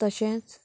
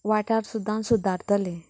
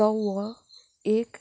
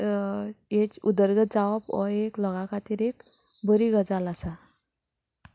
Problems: background sounds at intervals